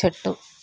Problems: constant background noise